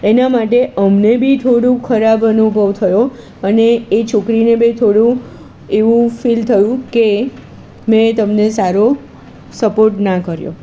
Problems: constant background noise